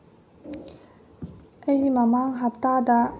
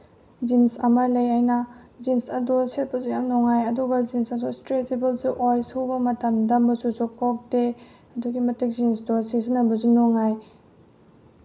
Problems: background sounds at intervals, low volume